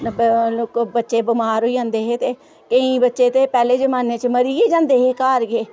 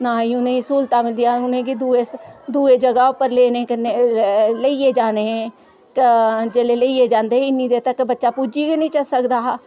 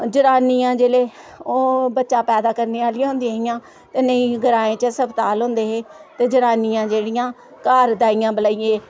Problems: none marked